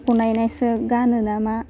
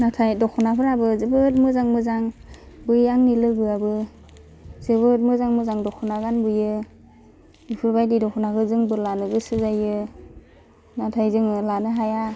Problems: constant background noise